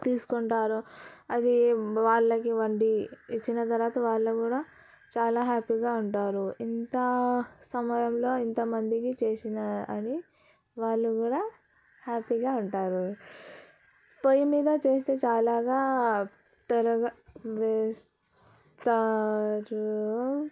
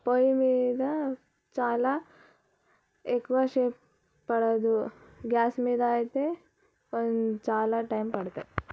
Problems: none marked